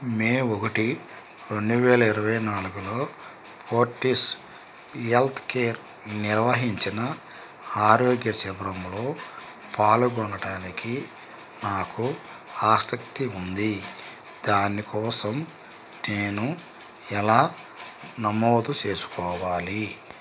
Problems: constant background noise